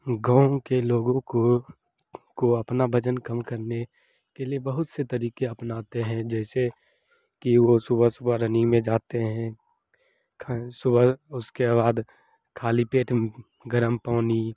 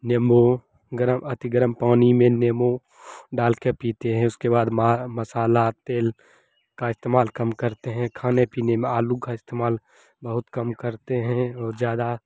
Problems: none marked